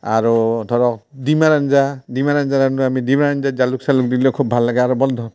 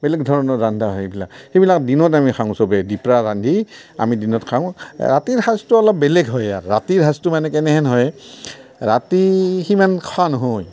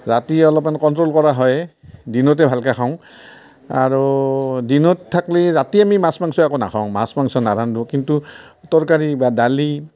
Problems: none marked